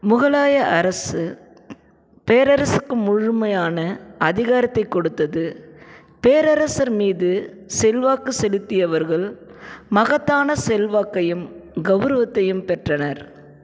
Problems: none marked